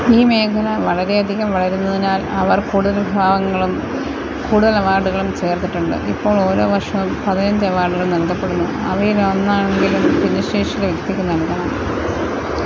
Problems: constant background noise